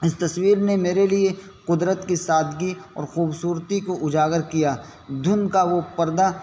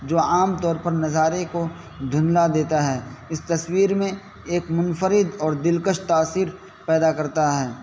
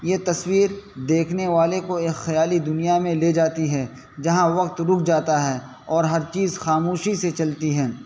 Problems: constant background noise